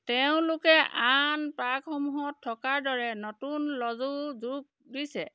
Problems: background sounds at intervals